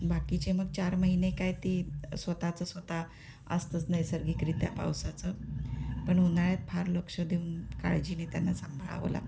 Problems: constant background noise